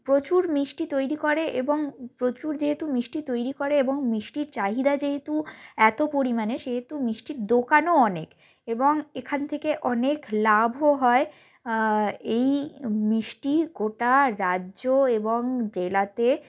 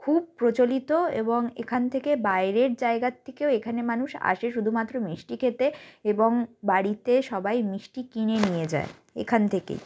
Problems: none marked